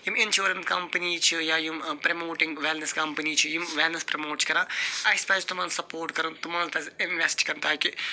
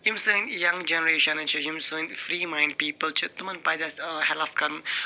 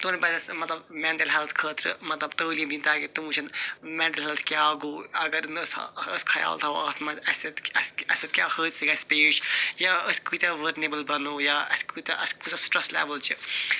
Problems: constant background noise